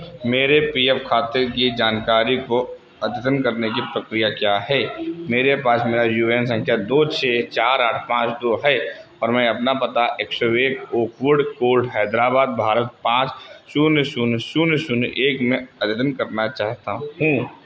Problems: constant background noise